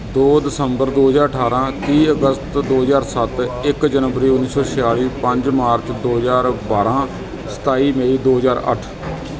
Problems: constant background noise